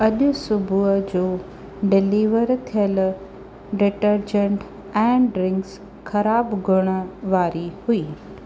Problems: none marked